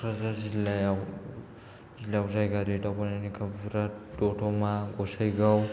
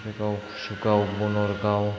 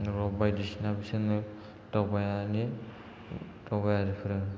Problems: low volume